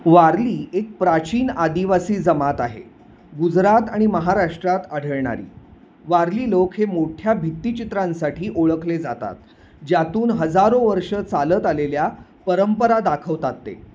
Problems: none marked